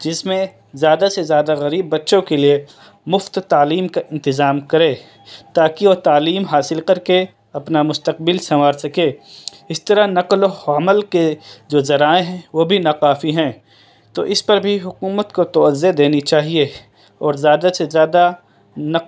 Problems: none marked